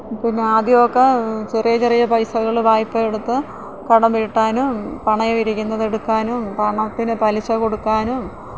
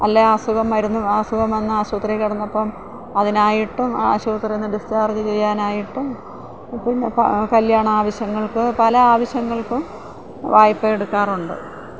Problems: constant background noise